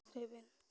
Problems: low volume